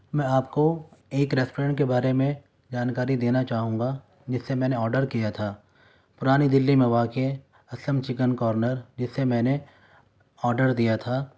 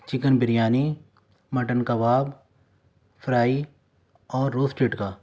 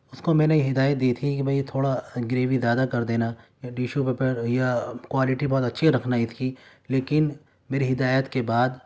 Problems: none marked